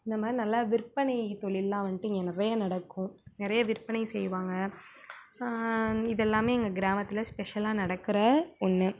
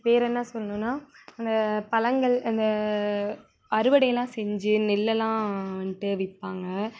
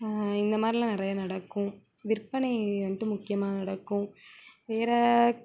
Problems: background conversations at intervals